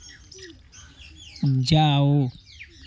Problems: constant background noise